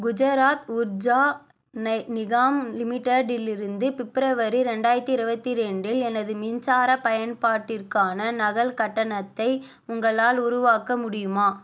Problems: none marked